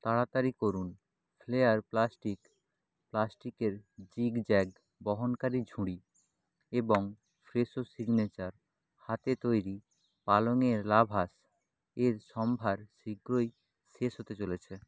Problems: none marked